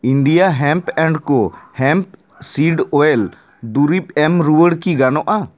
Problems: none marked